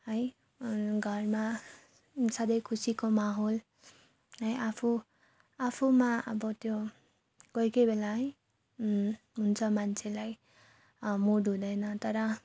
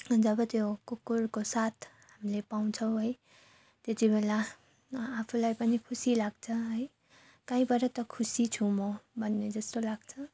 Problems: none marked